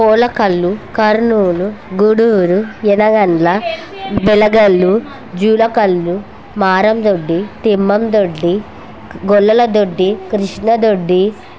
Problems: none marked